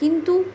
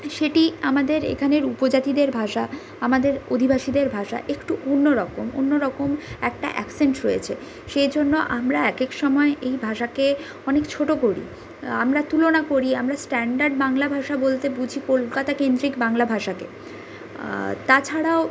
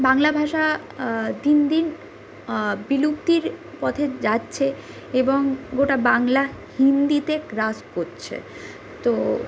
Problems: constant background noise